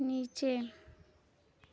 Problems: none marked